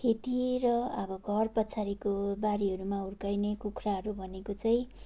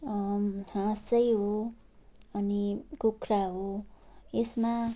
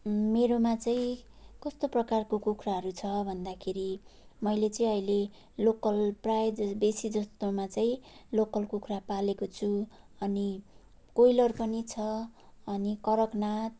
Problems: none marked